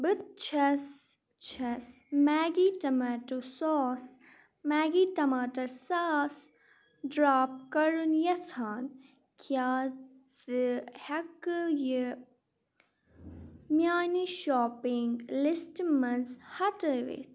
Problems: none marked